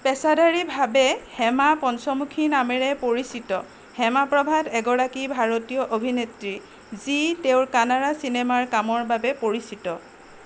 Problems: none marked